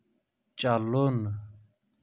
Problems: none marked